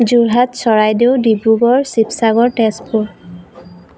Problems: constant background noise